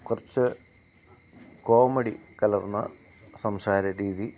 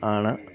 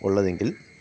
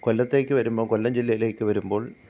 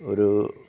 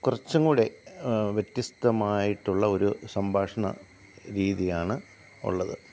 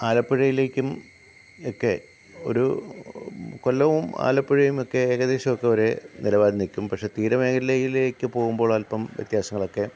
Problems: none marked